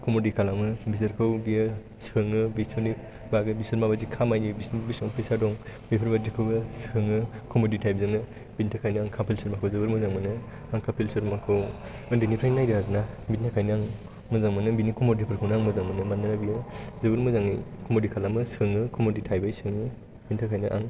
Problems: constant background noise